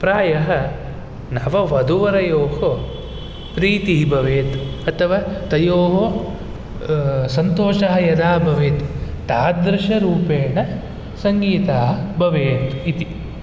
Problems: none marked